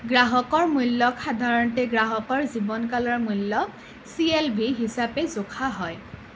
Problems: none marked